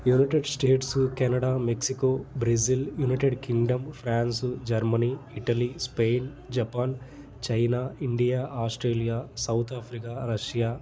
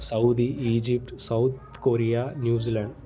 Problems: constant background noise